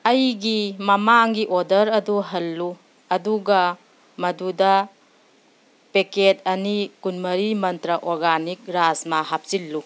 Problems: background sounds at intervals